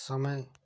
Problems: none marked